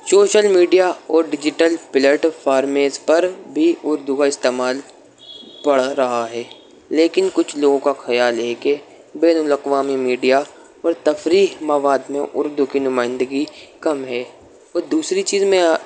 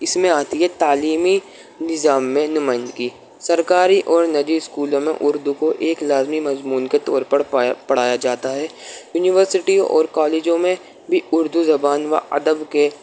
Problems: constant background noise